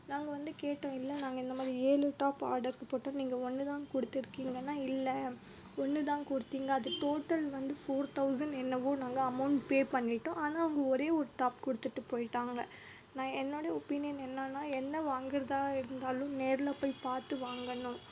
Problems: background sounds at intervals